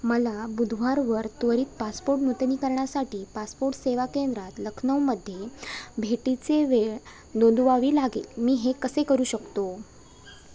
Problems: constant background noise, continuous background conversations